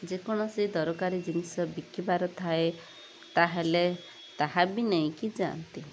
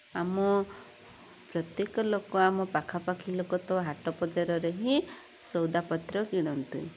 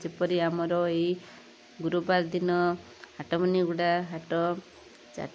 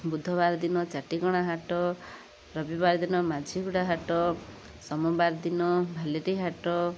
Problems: constant background noise